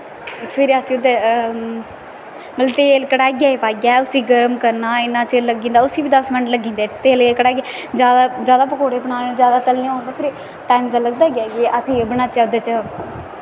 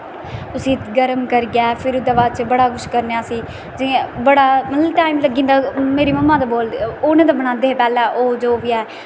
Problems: constant background noise